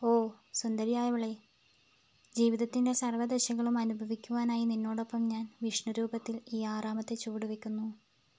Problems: low volume